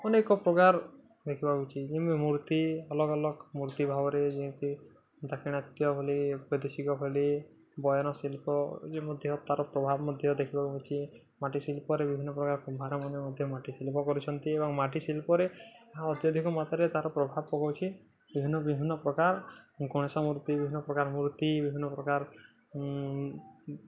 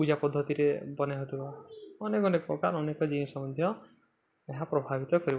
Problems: constant background noise, continuous background conversations